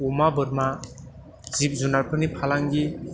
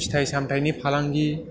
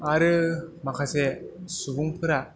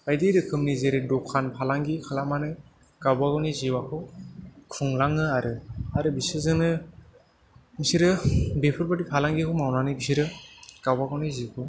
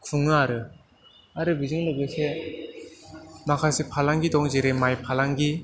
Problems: background sounds at intervals, background conversations at intervals